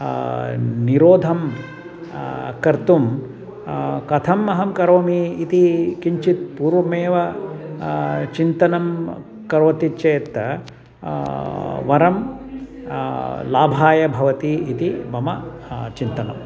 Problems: none marked